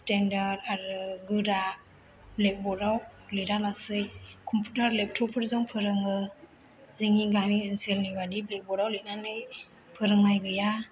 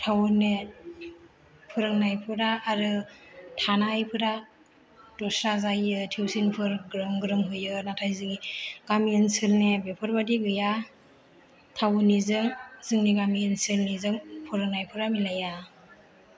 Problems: low volume